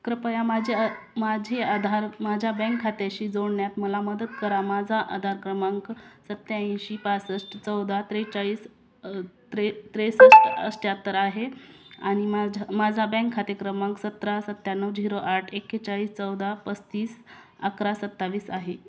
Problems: constant background noise, background conversations at intervals